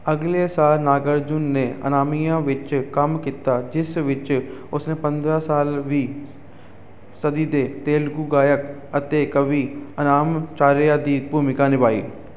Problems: none marked